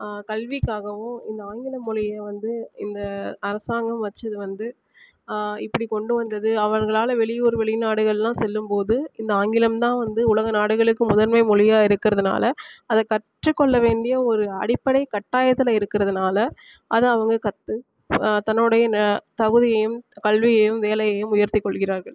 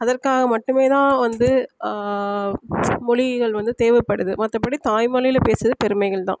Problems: background sounds at intervals